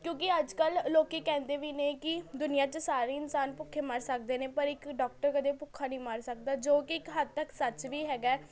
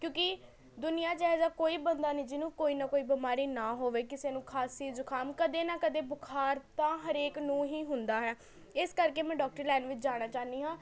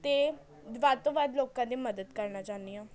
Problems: background sounds at intervals, continuous background conversations